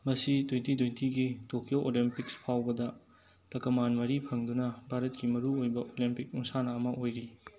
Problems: background conversations at intervals